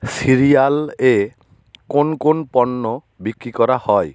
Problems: constant background noise